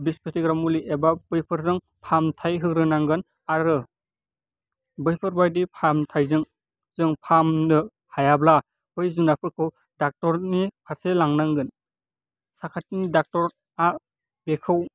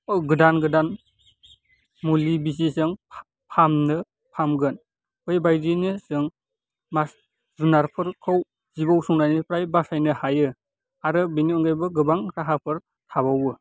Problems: constant background noise